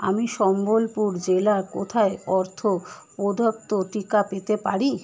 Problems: background sounds at intervals